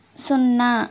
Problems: constant background noise